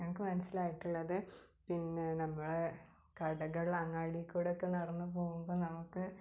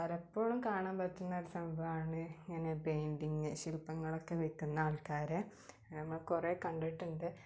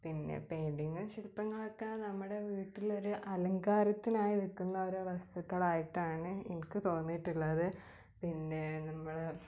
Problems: low volume